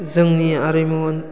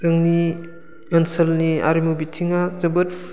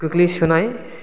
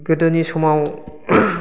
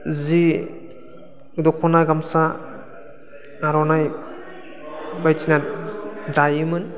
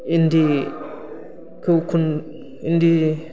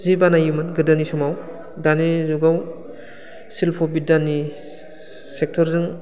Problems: constant background noise